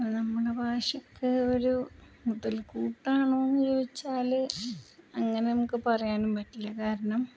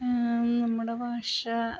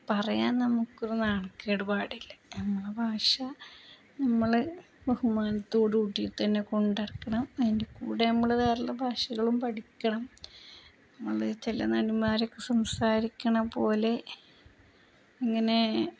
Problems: constant background noise, low volume